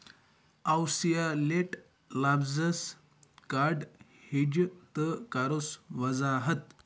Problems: none marked